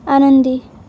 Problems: none marked